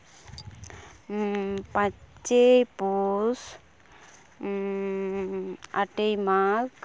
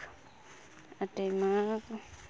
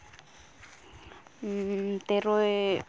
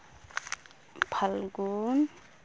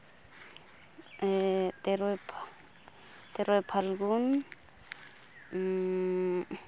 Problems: none marked